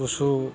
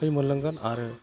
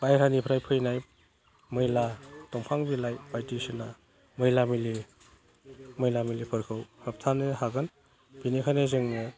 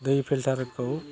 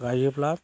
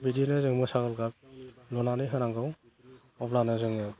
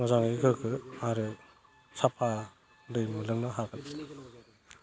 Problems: constant background noise